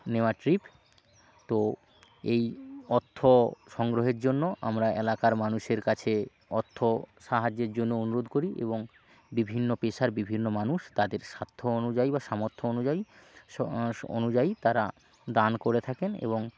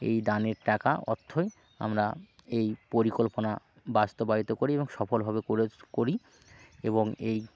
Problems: constant background noise